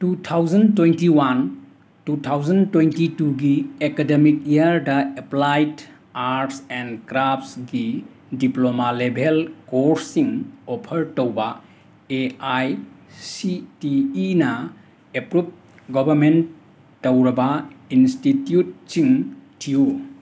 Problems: constant background noise